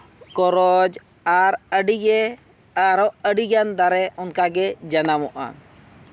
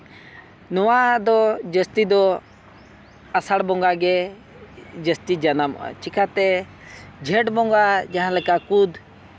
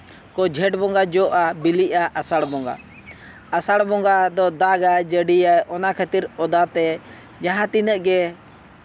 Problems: constant background noise